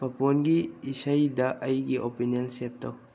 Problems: low volume